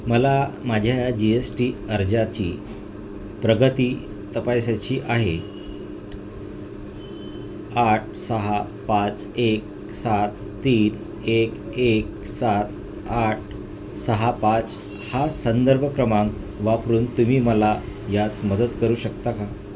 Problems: constant background noise